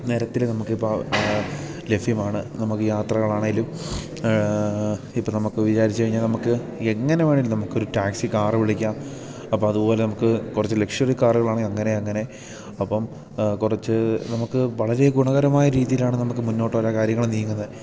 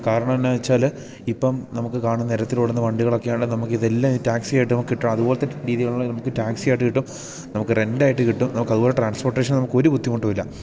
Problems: none marked